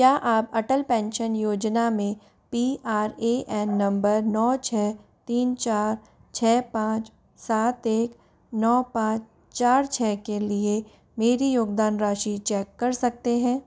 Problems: background sounds at intervals